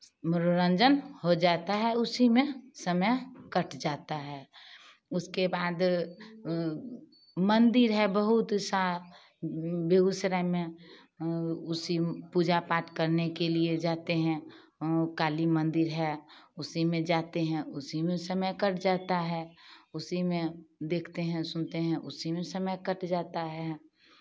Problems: background sounds at intervals, background conversations at intervals